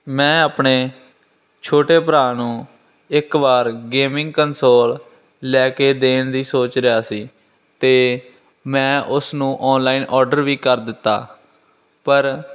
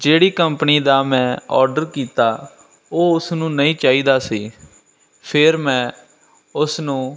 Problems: none marked